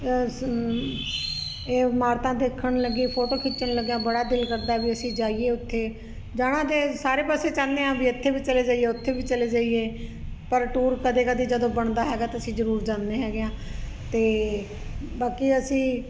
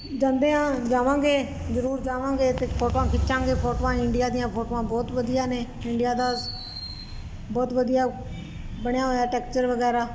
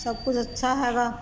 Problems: constant background noise